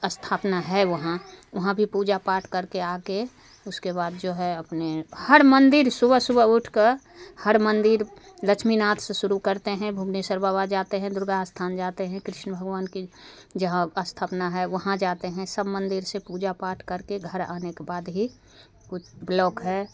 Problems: background sounds at intervals